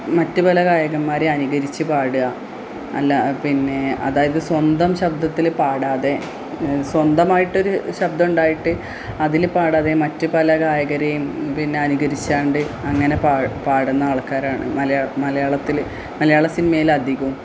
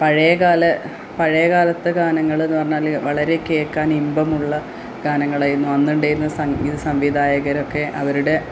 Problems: background sounds at intervals